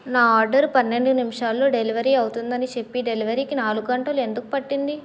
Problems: none marked